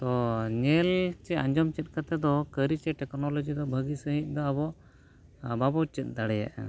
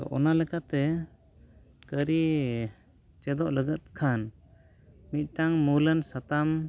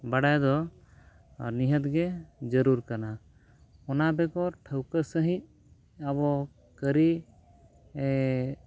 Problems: background conversations at intervals